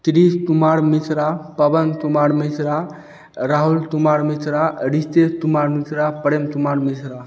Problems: none marked